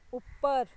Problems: background sounds at intervals